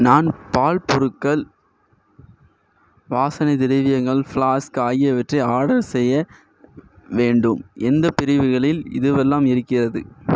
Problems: none marked